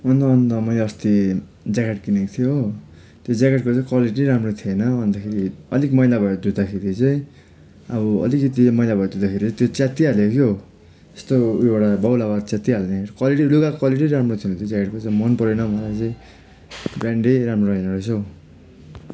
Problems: constant background noise